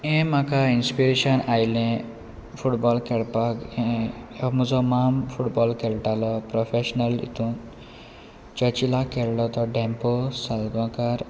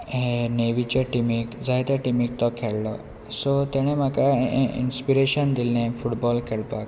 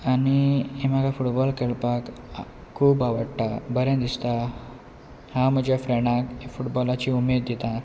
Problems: constant background noise